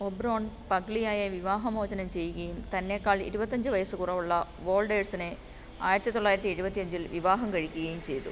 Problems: constant background noise